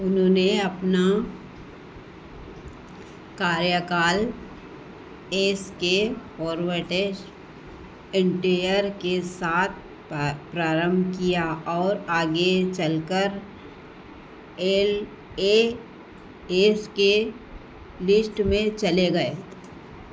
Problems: constant background noise, echo